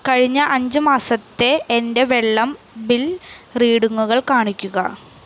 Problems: none marked